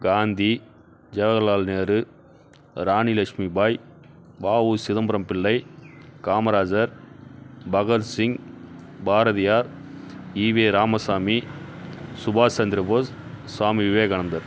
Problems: background sounds at intervals